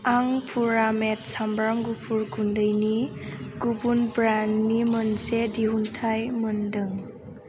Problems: constant background noise